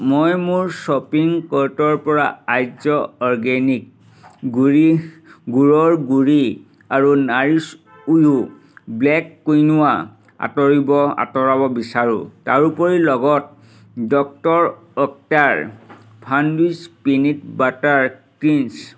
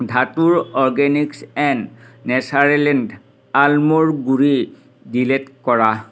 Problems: none marked